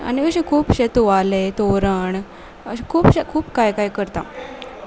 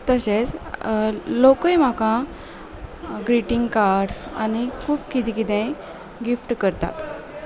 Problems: none marked